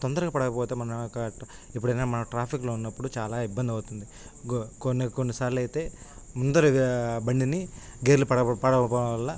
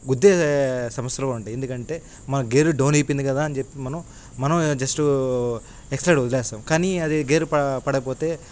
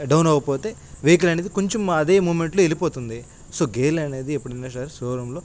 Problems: constant background noise